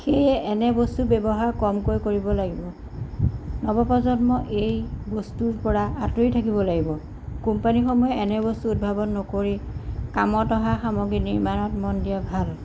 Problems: background sounds at intervals